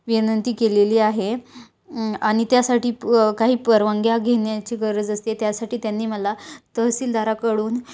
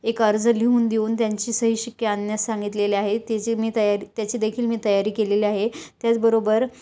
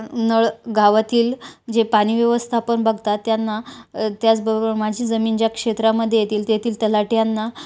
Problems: none marked